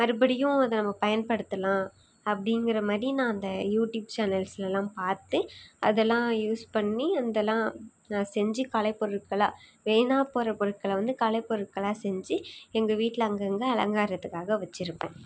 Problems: none marked